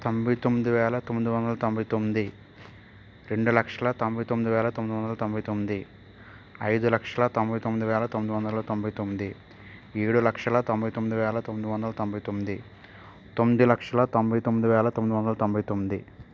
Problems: constant background noise